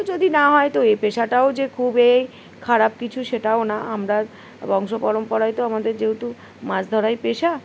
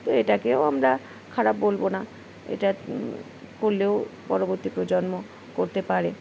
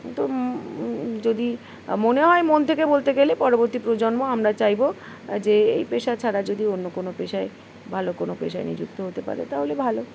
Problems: background sounds at intervals